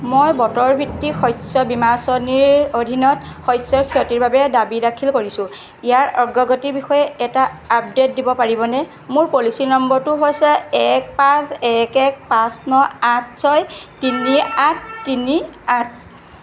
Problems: constant background noise